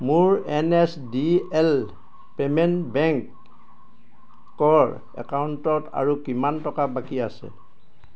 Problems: background sounds at intervals